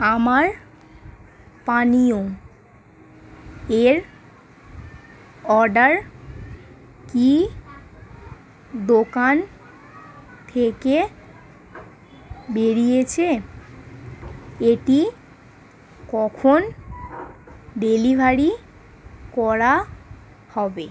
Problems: constant background noise, background conversations at intervals